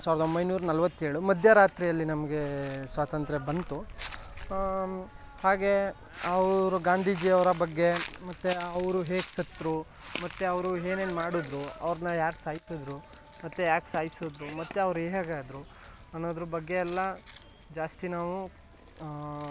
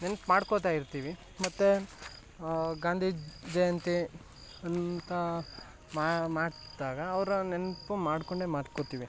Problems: background sounds at intervals